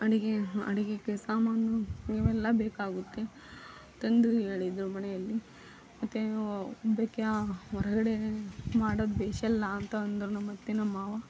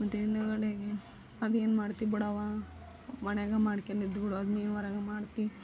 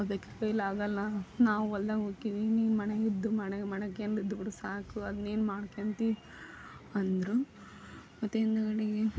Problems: background sounds at intervals